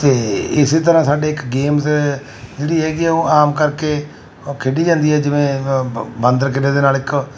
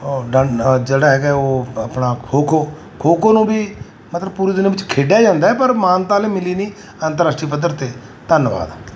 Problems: none marked